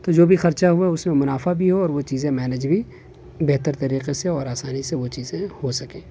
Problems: constant background noise